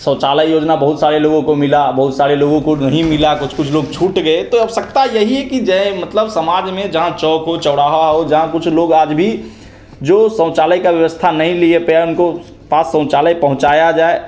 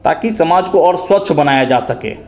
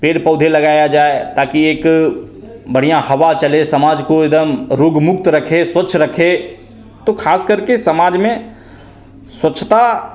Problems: constant background noise